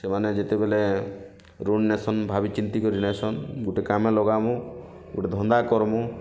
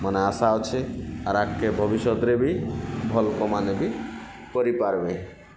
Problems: constant background noise